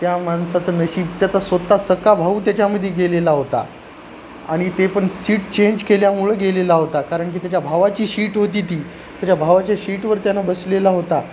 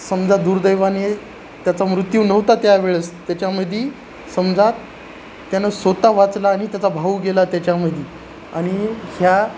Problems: constant background noise